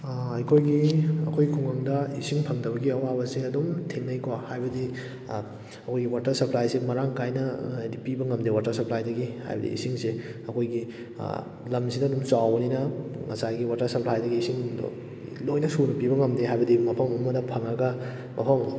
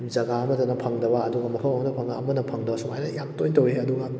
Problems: none marked